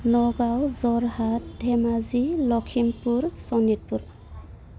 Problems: constant background noise